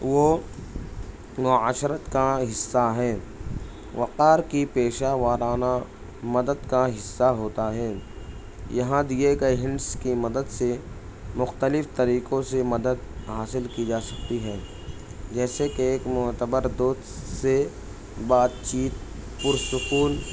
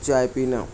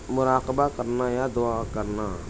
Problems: constant background noise